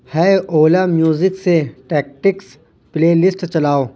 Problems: none marked